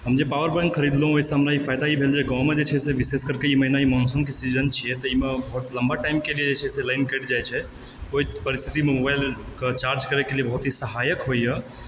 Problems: background sounds at intervals